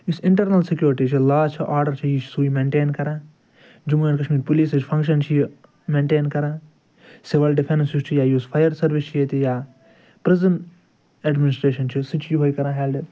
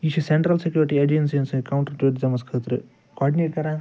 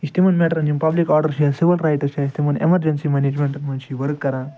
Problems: background sounds at intervals, background conversations at intervals